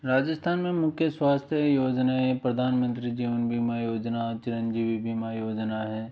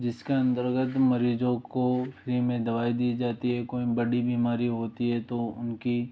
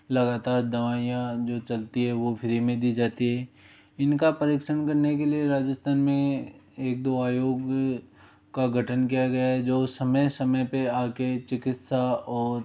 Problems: none marked